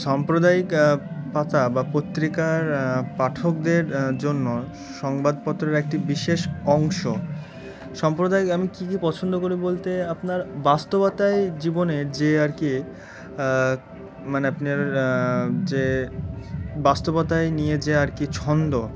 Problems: constant background noise